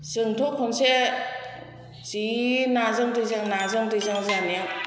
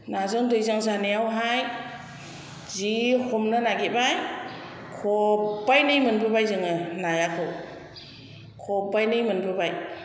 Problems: constant background noise